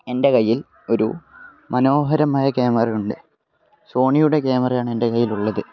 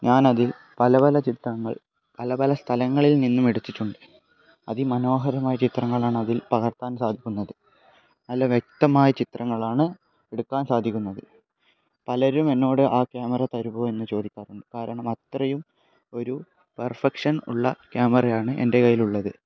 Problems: background conversations at intervals